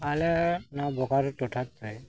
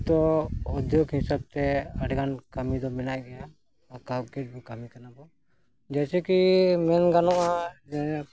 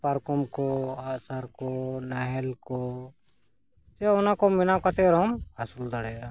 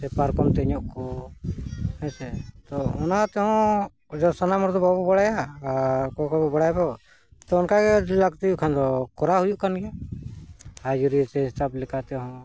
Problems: background sounds at intervals, background conversations at intervals